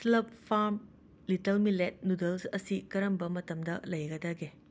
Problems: constant background noise